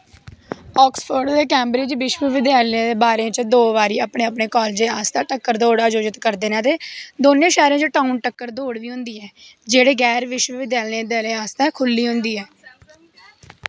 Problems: none marked